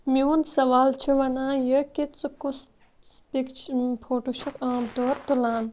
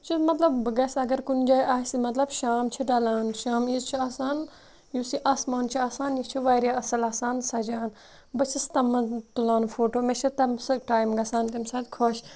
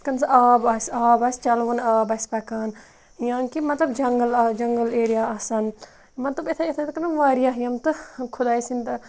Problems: constant background noise